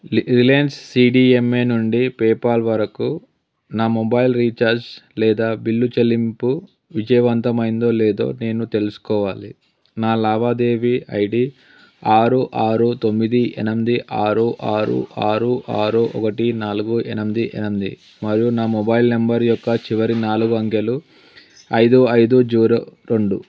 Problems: none marked